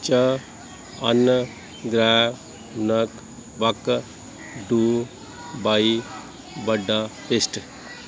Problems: background sounds at intervals